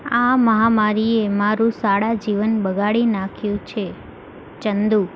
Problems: constant background noise